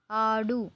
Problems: none marked